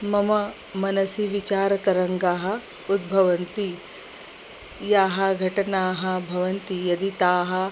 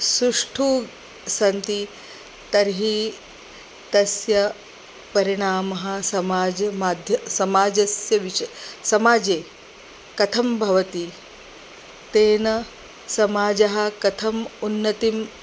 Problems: constant background noise